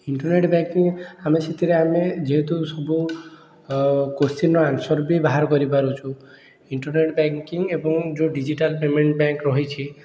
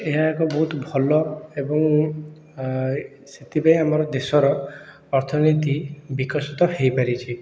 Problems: none marked